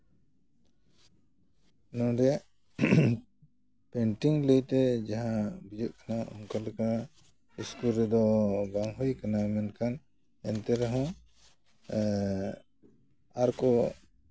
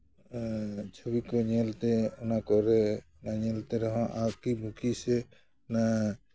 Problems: none marked